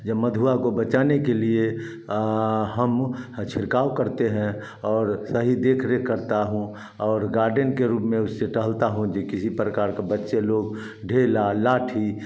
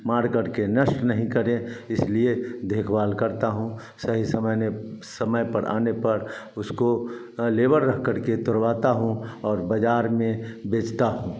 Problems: none marked